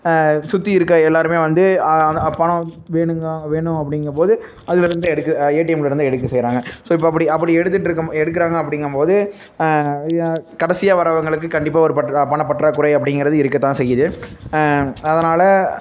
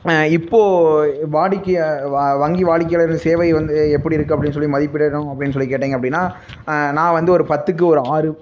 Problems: background sounds at intervals, low volume